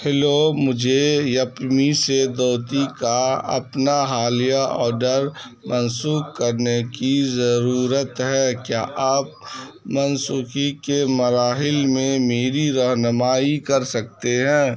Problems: background sounds at intervals, background conversations at intervals